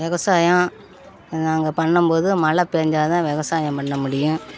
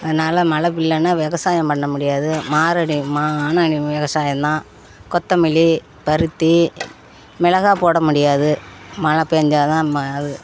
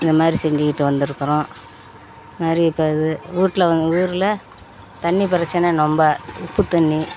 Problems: constant background noise, background conversations at intervals